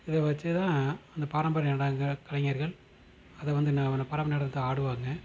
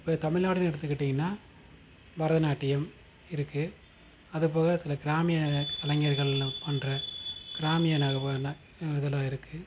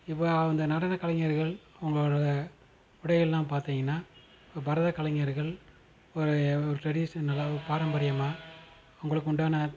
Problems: constant background noise